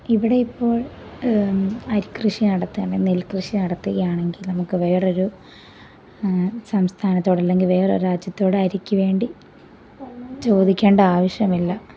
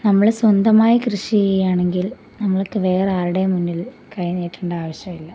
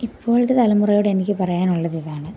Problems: low volume